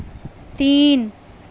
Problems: constant background noise